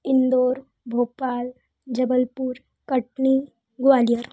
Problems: low volume